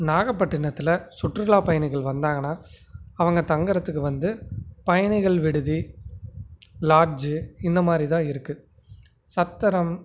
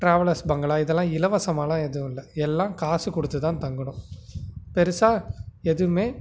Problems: none marked